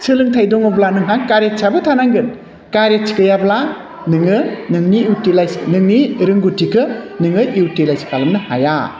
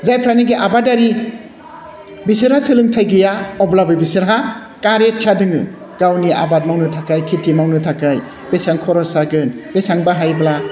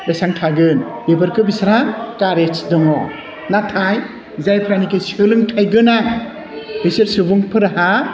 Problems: constant background noise